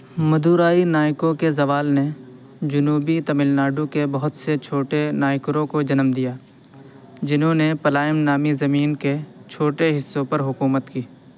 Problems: constant background noise